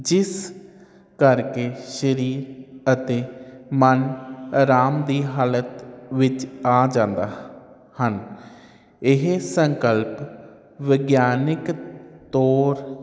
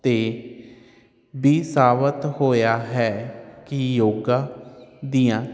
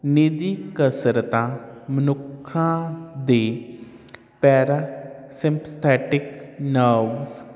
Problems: none marked